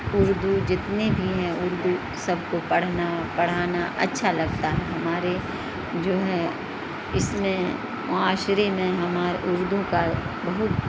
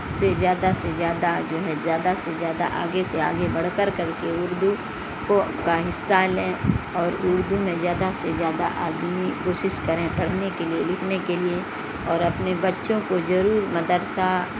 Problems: constant background noise